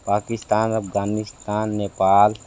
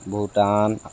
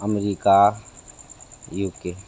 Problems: constant background noise